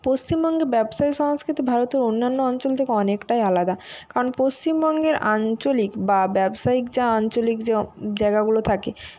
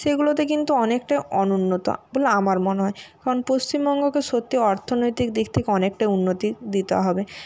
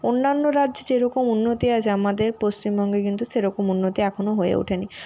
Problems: none marked